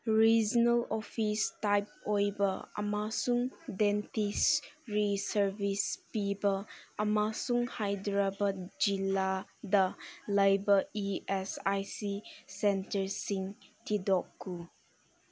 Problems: background sounds at intervals